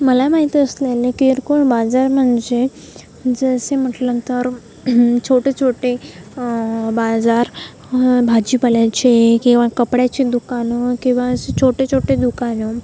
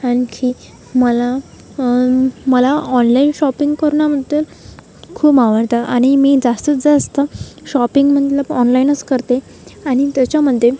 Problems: constant background noise